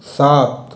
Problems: constant background noise, echo